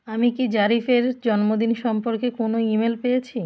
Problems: constant background noise